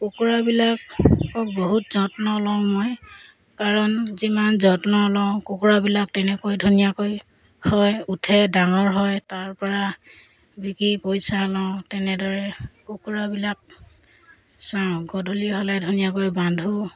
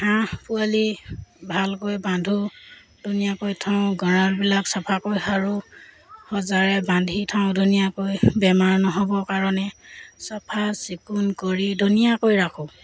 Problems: background sounds at intervals